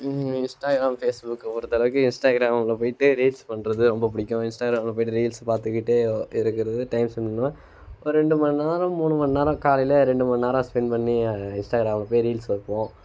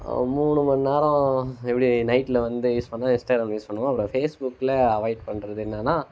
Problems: constant background noise